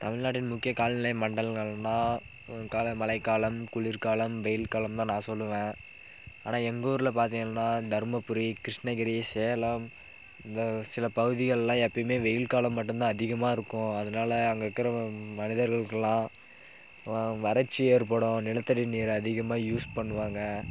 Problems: constant background noise